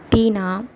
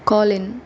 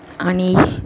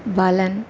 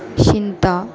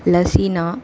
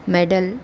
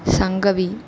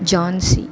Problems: echo